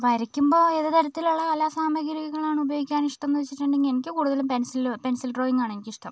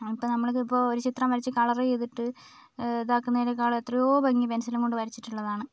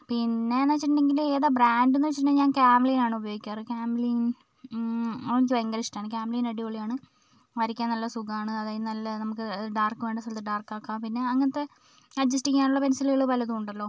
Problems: background conversations at intervals